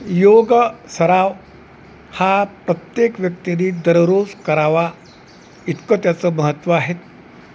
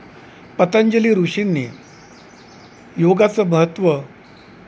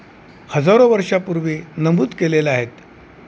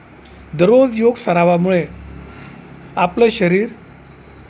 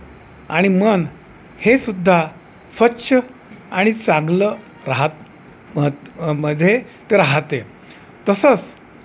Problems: none marked